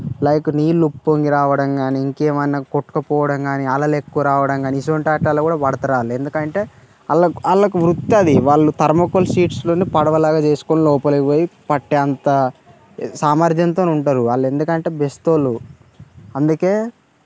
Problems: constant background noise